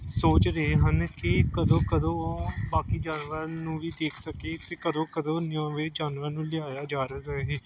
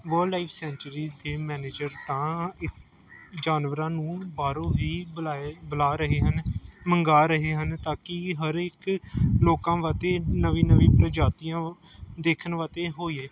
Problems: none marked